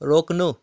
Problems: none marked